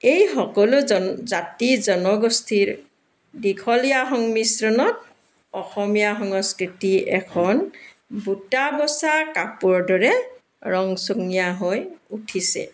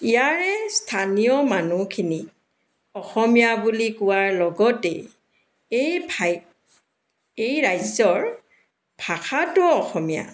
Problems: background sounds at intervals, background conversations at intervals